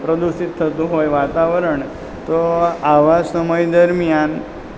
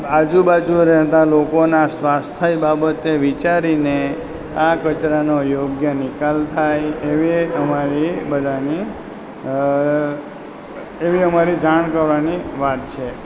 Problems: constant background noise